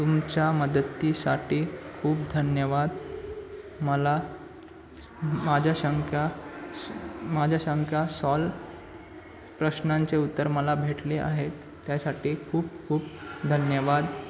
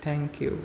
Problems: constant background noise, continuous background conversations